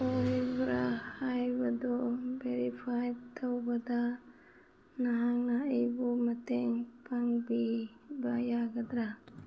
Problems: background sounds at intervals, background conversations at intervals